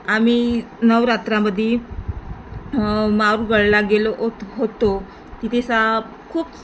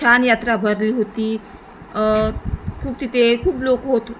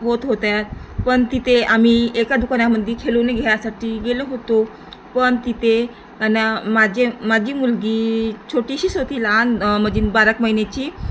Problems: constant background noise